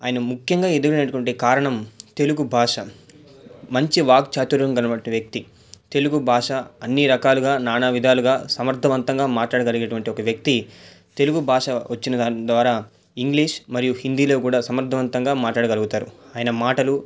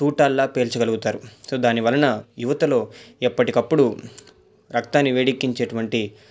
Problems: none marked